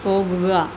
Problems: constant background noise